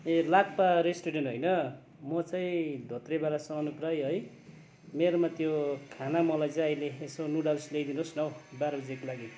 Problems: constant background noise